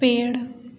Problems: constant background noise, echo